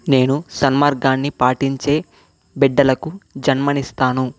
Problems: none marked